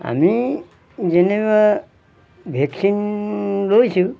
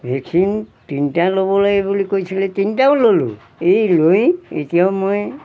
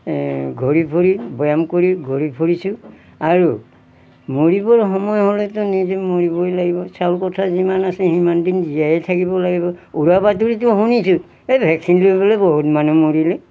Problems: background sounds at intervals